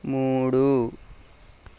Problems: none marked